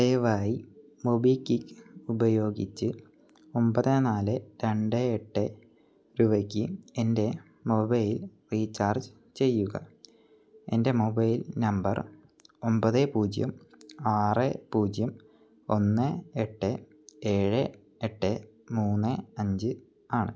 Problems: none marked